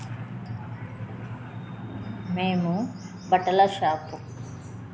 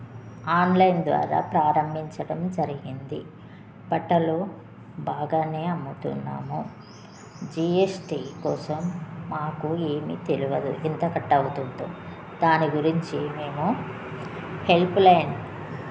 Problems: constant background noise, background conversations at intervals